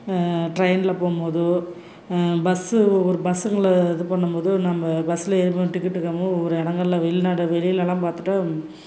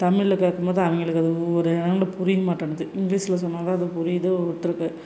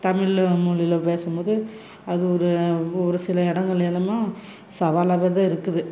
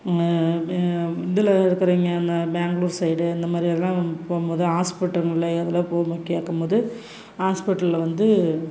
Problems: constant background noise